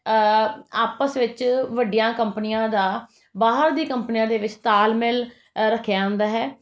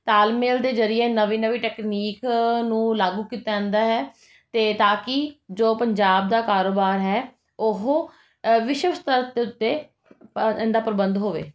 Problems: none marked